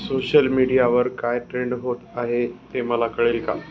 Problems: constant background noise, background conversations at intervals